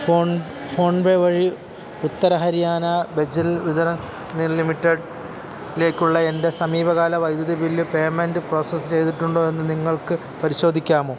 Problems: constant background noise